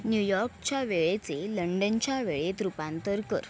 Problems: constant background noise, background conversations at intervals